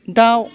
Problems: background sounds at intervals